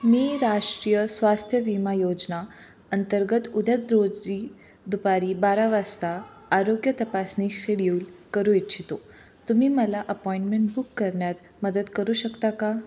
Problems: constant background noise, background conversations at intervals